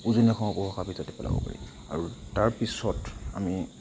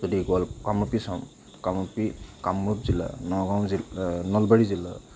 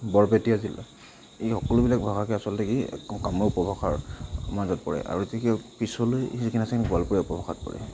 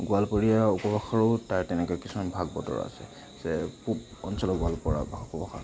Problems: constant background noise, continuous background conversations